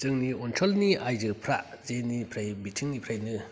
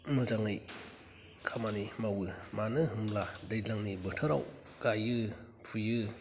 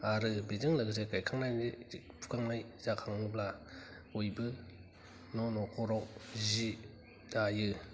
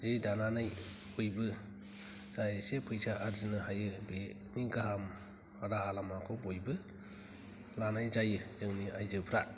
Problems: low volume